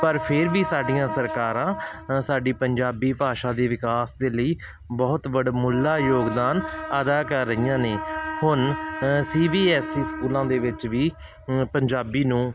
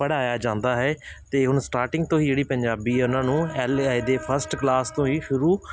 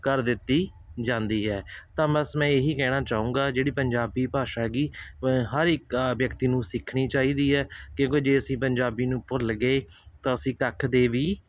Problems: constant background noise